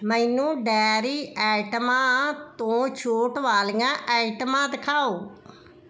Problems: none marked